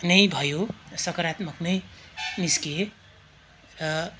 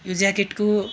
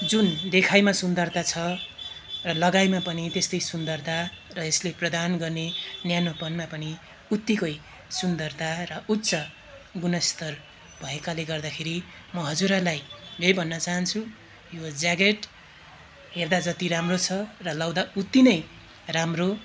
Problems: background sounds at intervals